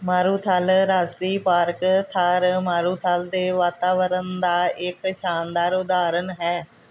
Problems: background sounds at intervals